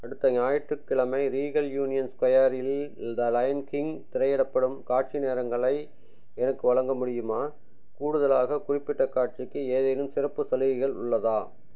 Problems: none marked